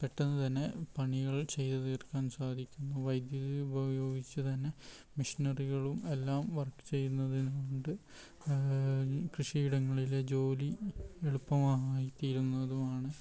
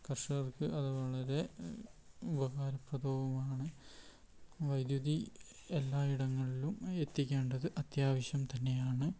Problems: none marked